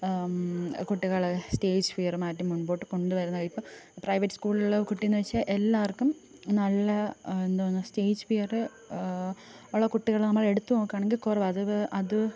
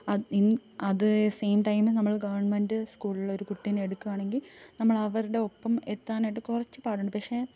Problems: none marked